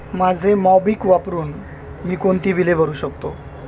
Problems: constant background noise